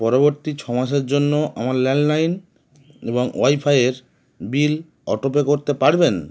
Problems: none marked